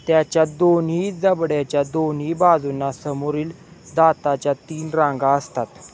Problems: background sounds at intervals